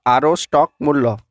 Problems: constant background noise